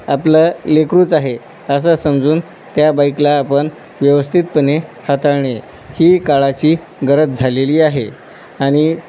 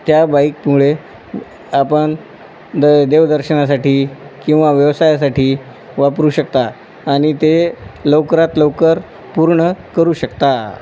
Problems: none marked